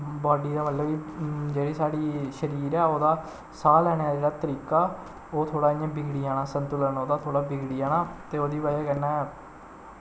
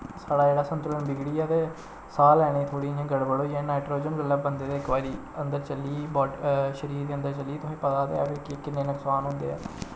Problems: constant background noise